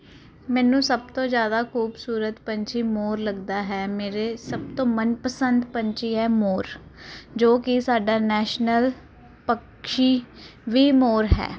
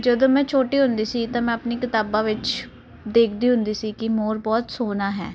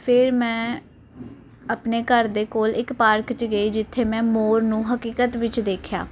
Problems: none marked